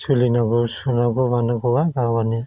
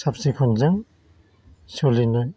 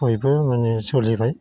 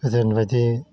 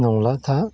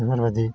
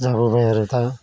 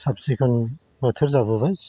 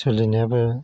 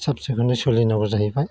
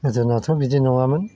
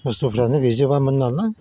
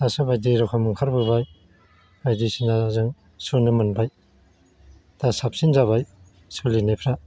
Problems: constant background noise